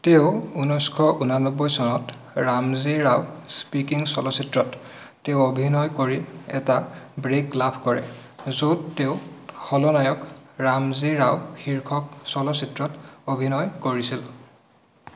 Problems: constant background noise